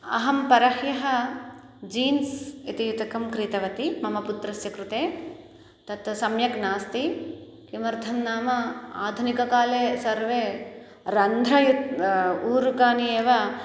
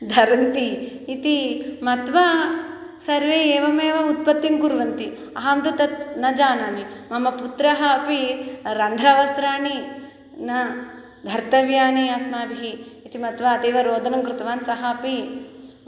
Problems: none marked